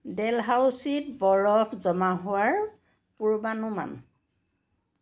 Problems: none marked